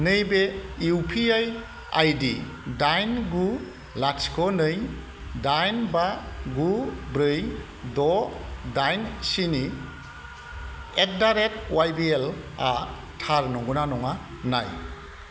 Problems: constant background noise